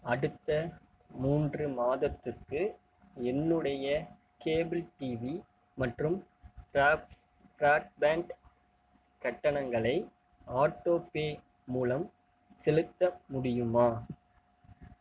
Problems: none marked